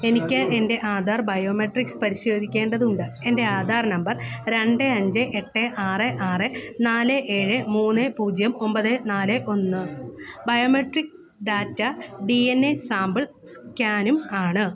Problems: background conversations at intervals